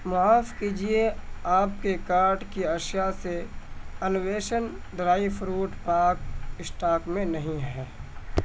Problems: constant background noise